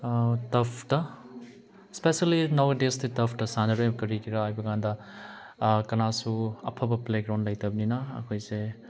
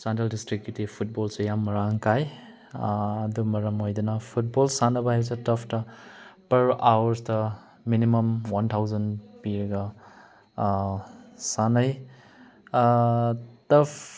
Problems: none marked